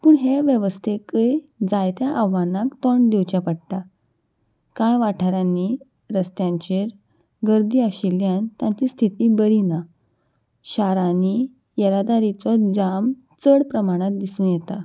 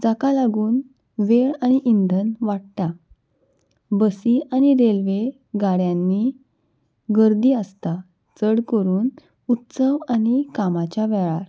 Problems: none marked